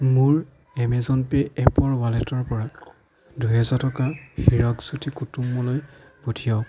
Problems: background sounds at intervals, background conversations at intervals